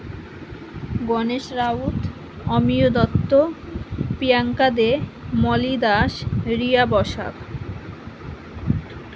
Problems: constant background noise